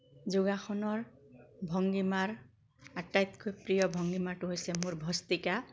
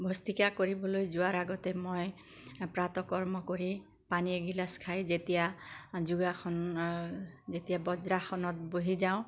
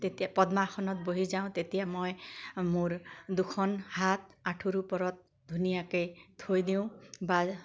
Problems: constant background noise